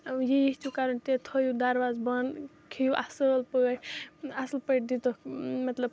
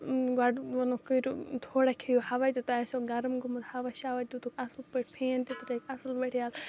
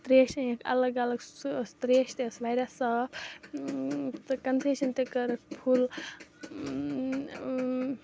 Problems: constant background noise, background conversations at intervals